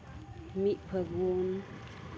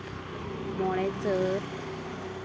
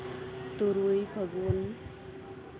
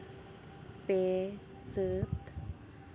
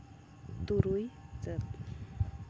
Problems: constant background noise